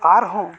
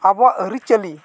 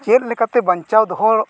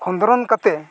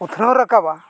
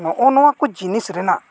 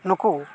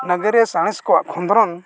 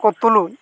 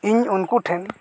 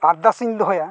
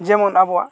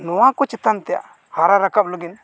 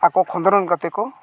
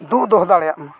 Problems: none marked